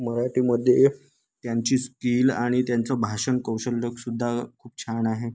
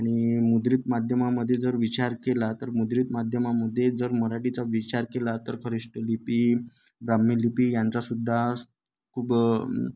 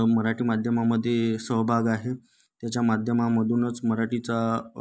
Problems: none marked